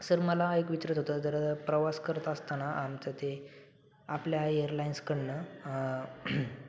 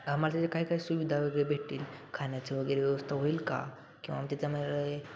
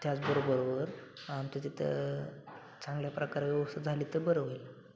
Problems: constant background noise, continuous background conversations